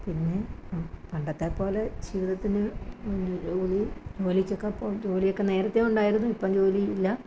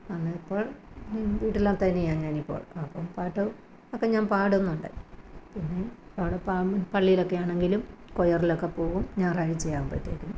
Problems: background sounds at intervals